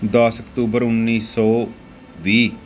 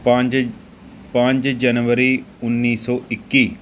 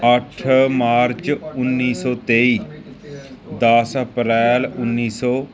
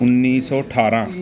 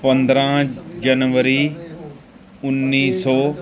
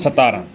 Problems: continuous background conversations